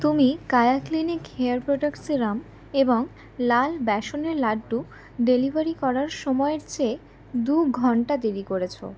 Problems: constant background noise